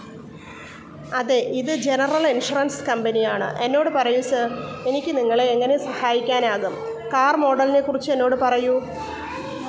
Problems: constant background noise